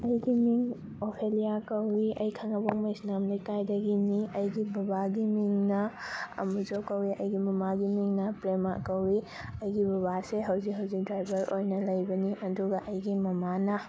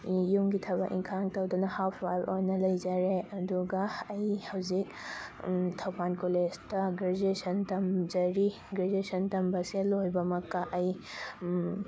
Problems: none marked